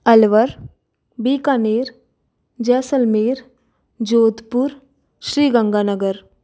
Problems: none marked